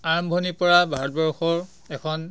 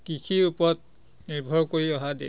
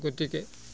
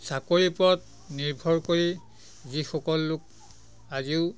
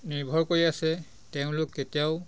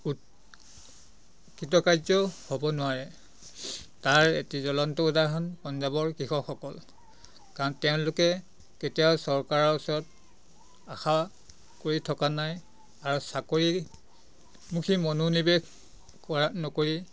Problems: constant background noise, background conversations at intervals